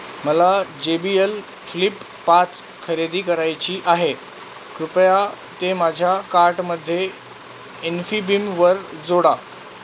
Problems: constant background noise